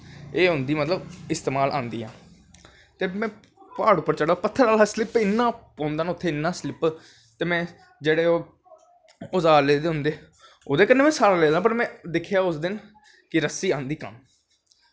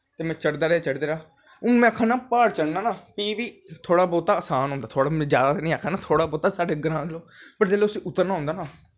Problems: constant background noise